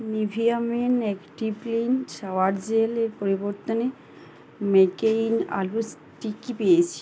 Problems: constant background noise